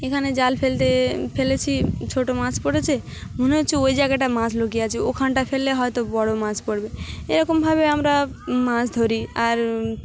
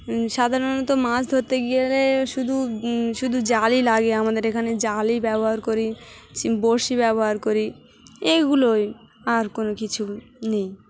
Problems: constant background noise, continuous background conversations